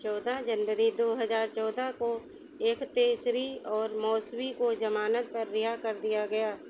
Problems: constant background noise